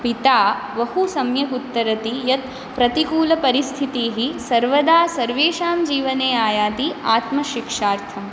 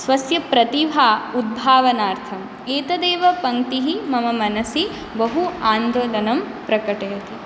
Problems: constant background noise